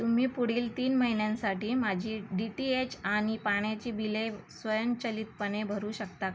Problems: constant background noise